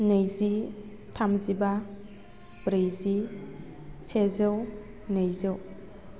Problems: none marked